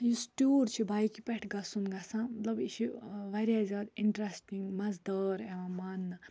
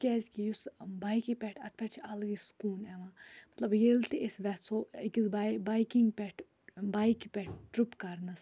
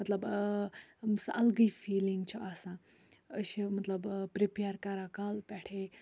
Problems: none marked